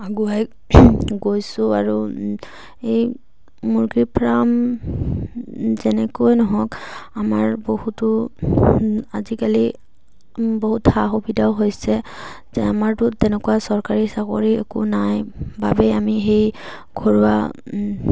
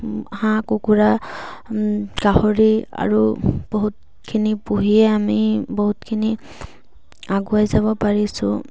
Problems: none marked